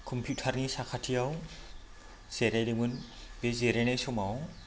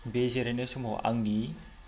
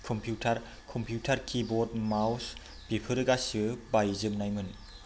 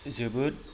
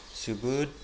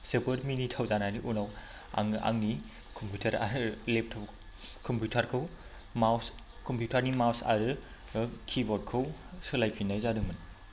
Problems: constant background noise